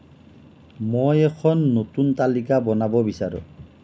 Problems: none marked